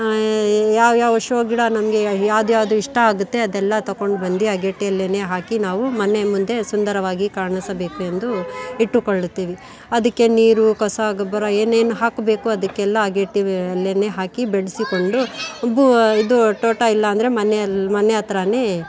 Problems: background sounds at intervals, background conversations at intervals